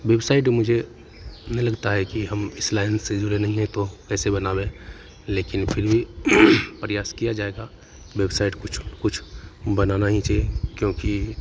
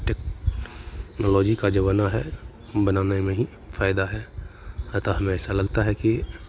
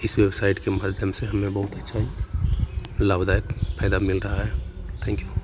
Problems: background sounds at intervals